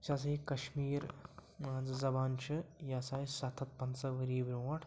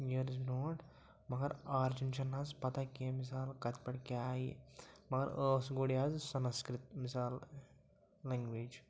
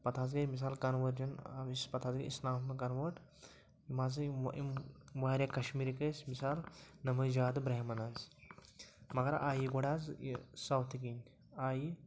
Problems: low volume